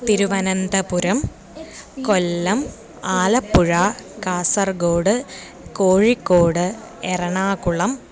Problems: none marked